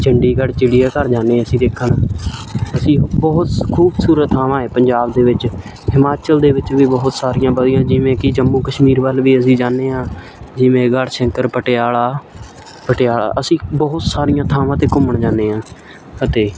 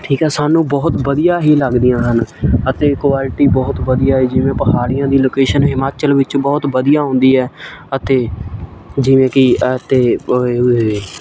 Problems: none marked